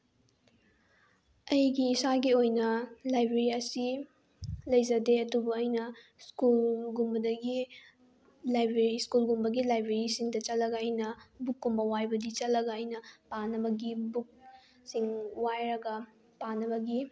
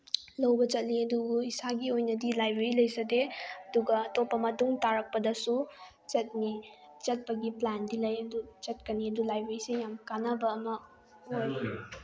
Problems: background conversations at intervals